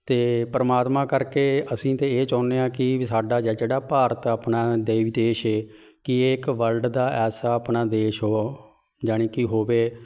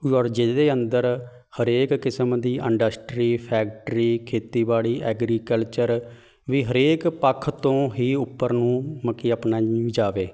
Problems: background sounds at intervals, background conversations at intervals